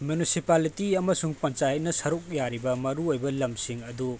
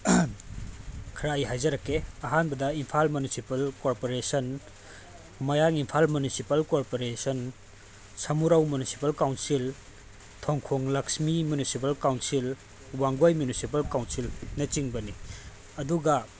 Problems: constant background noise